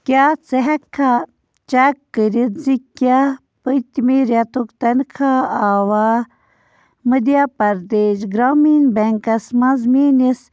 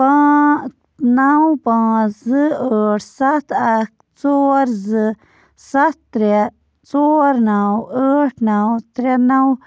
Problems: constant background noise